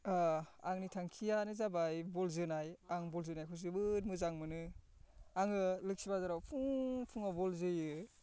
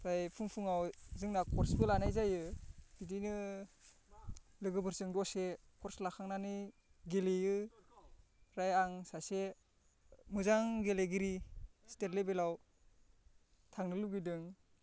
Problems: constant background noise